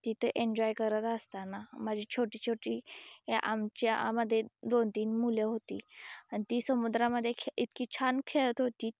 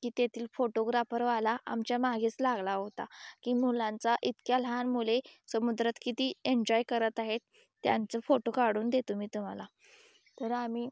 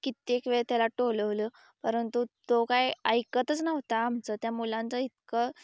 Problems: background sounds at intervals